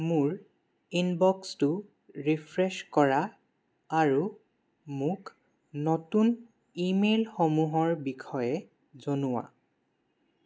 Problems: low volume